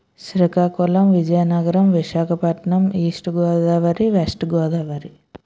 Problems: none marked